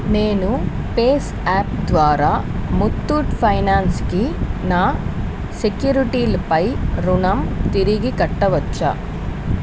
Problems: constant background noise